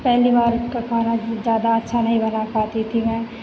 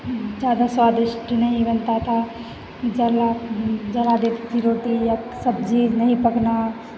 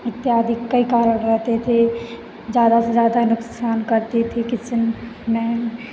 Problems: constant background noise